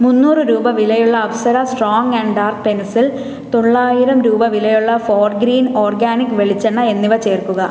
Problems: constant background noise